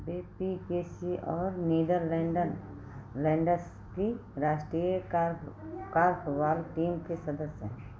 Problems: background sounds at intervals